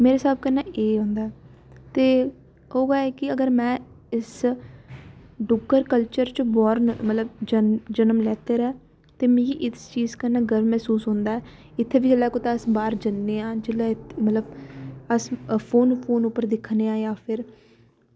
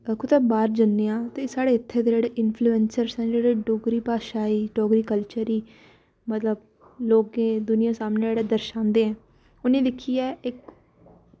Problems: background sounds at intervals